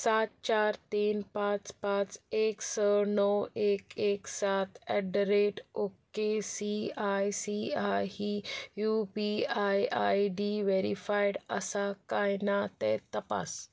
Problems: background sounds at intervals